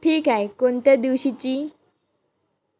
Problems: background sounds at intervals, background conversations at intervals